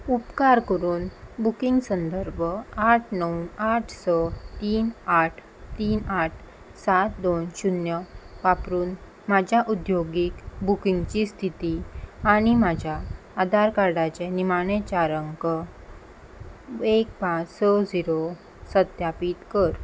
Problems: constant background noise